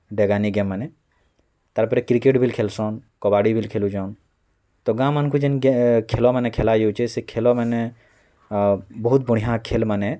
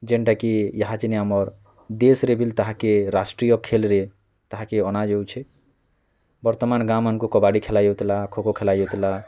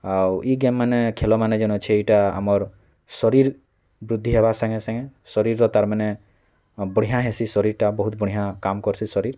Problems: none marked